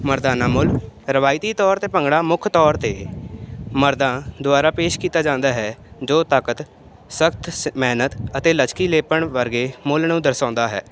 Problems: none marked